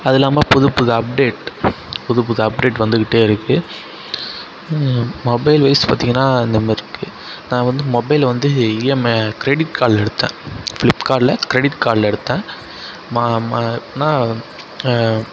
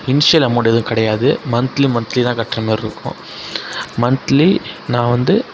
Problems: constant background noise, background conversations at intervals